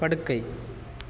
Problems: none marked